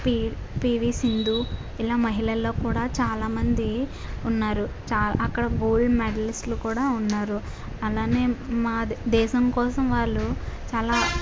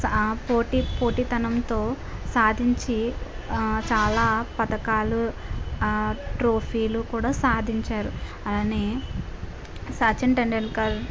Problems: constant background noise